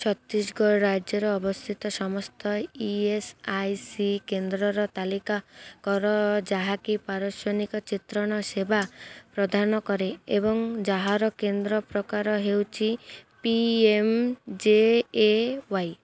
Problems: none marked